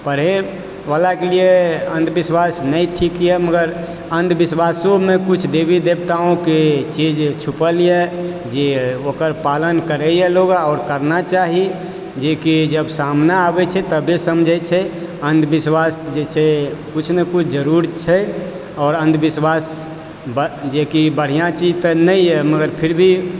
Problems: constant background noise